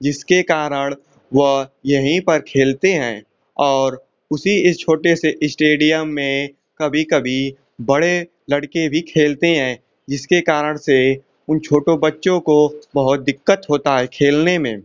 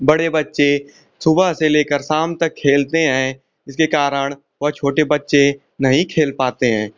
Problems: constant background noise